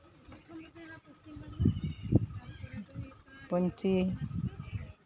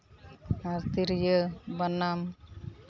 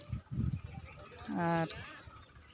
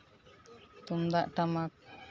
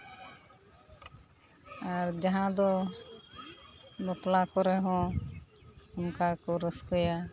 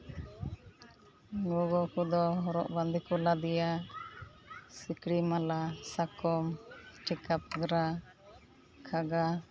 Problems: constant background noise